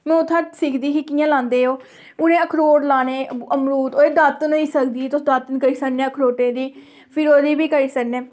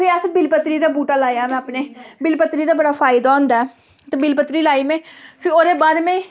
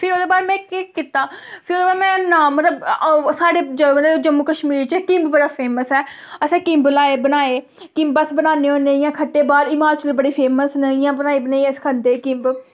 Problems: background sounds at intervals